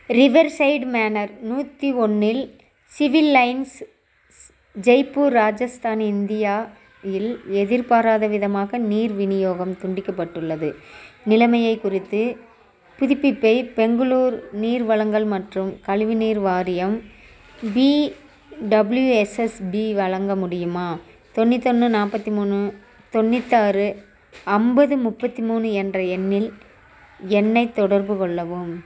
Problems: background sounds at intervals